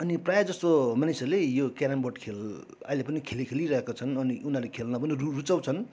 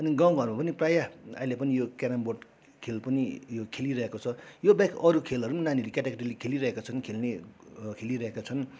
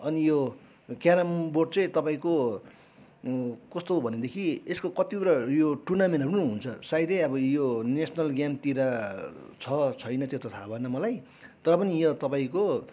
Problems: background sounds at intervals, background conversations at intervals